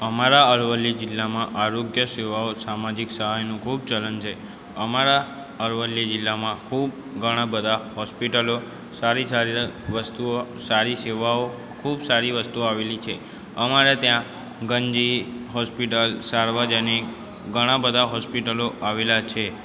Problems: continuous background conversations